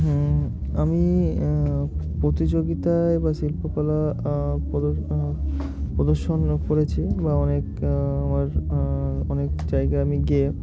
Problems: constant background noise